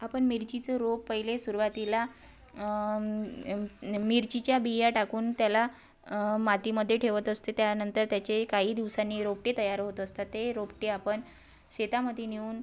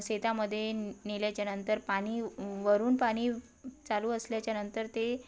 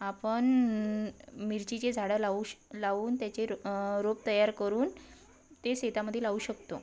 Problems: constant background noise, background conversations at intervals